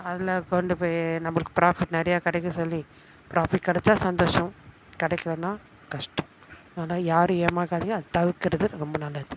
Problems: constant background noise